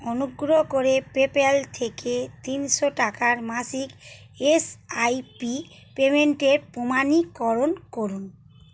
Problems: constant background noise